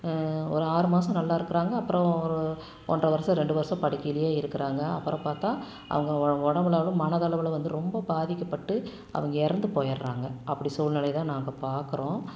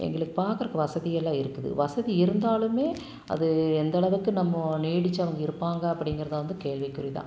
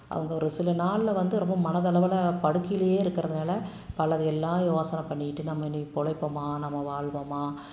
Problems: constant background noise